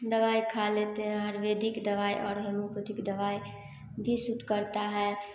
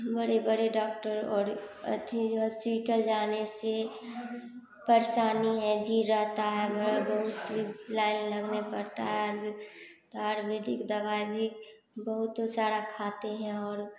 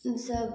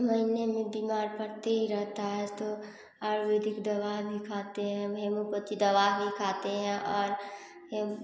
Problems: constant background noise